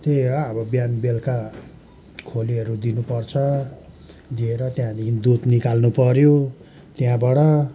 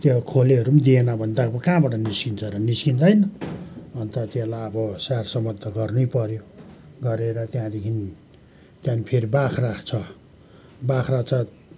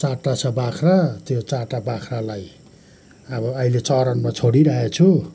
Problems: background sounds at intervals